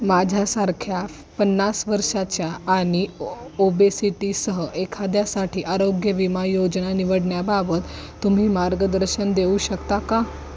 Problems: none marked